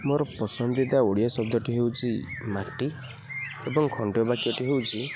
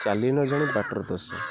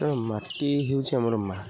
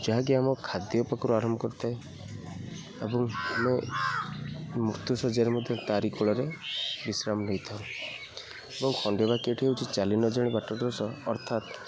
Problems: constant background noise, continuous background conversations